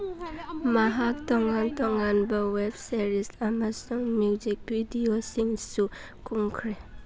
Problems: background sounds at intervals, background conversations at intervals